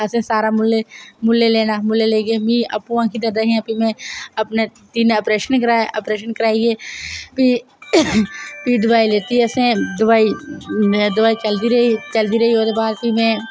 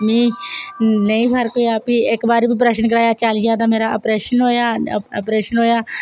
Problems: none marked